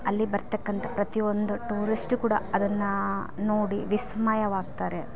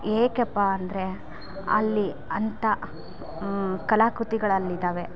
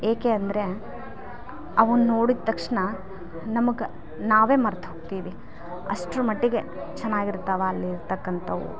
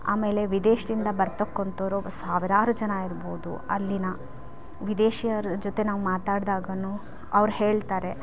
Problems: background sounds at intervals